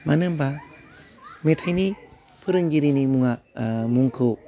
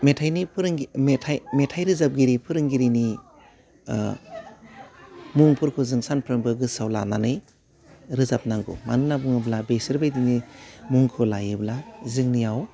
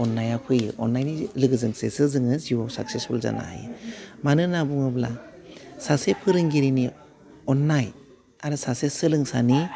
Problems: background sounds at intervals